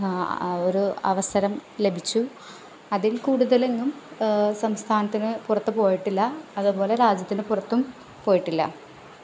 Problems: background sounds at intervals